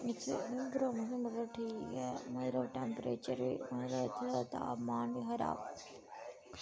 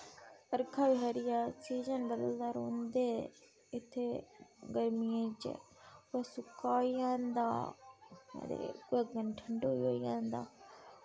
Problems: constant background noise